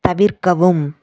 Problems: none marked